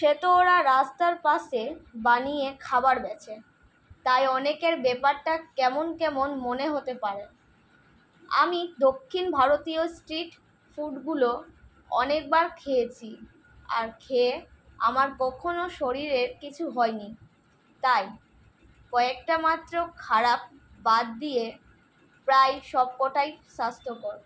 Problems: constant background noise